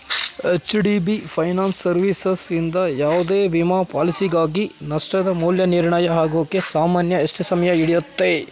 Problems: constant background noise